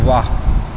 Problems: constant background noise